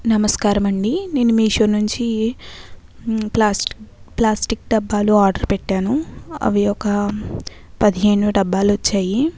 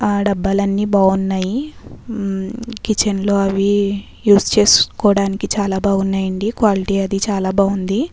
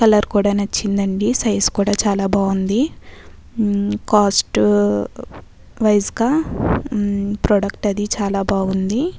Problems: background sounds at intervals